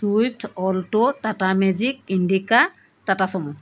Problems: background sounds at intervals